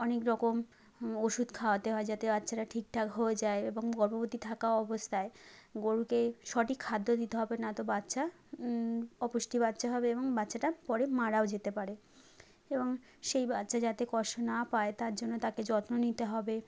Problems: constant background noise